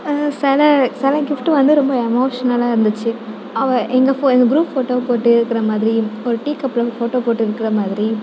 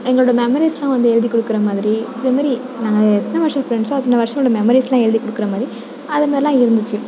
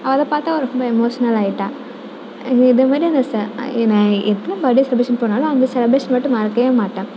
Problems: background sounds at intervals